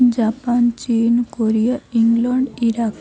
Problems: constant background noise, continuous background conversations